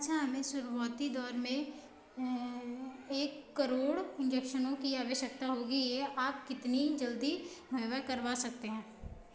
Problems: none marked